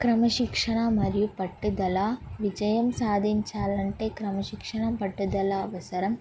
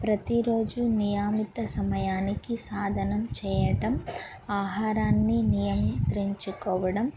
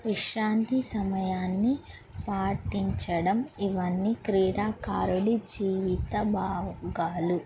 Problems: background sounds at intervals